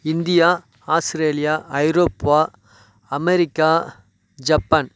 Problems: background sounds at intervals